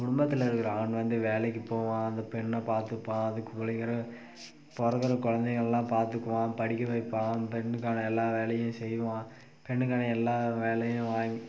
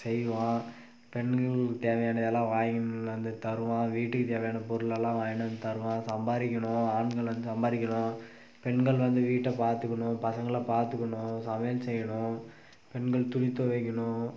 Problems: constant background noise